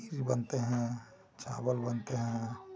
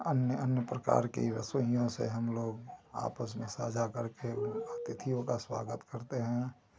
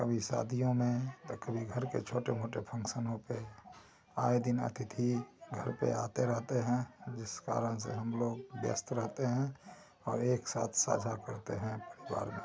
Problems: constant background noise